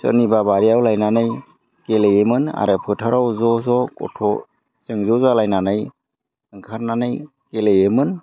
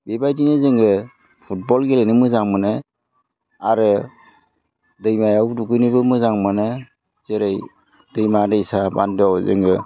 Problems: constant background noise